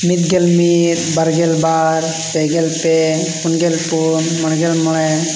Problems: background conversations at intervals